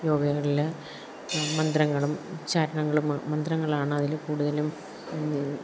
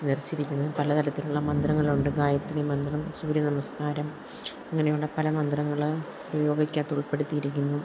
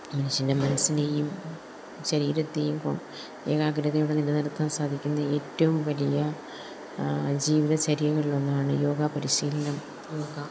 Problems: background sounds at intervals